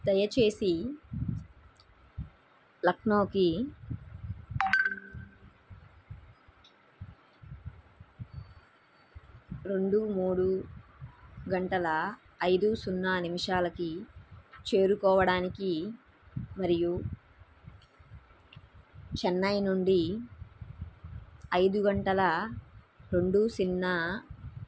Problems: background sounds at intervals